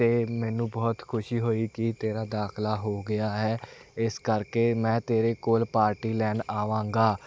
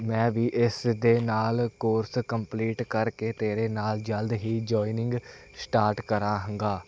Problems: none marked